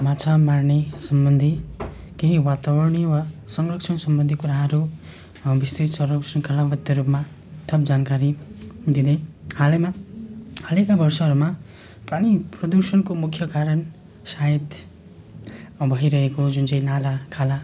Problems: none marked